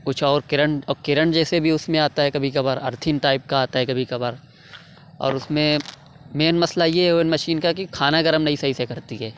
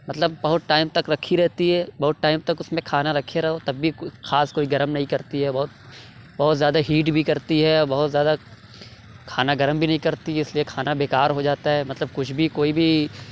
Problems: none marked